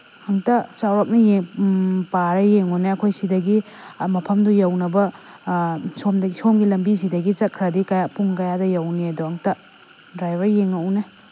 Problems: constant background noise